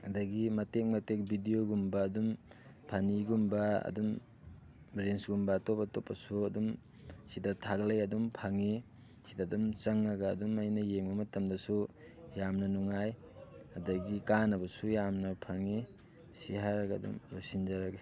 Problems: background sounds at intervals, background conversations at intervals